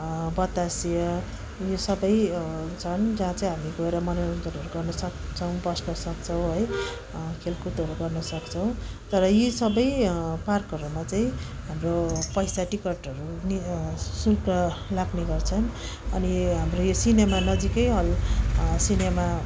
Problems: continuous background conversations